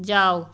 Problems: constant background noise